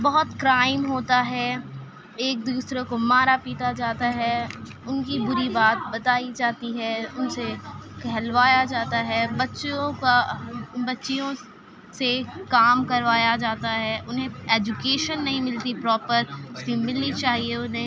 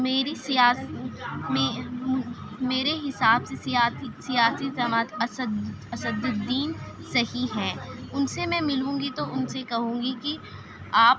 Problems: constant background noise, continuous background conversations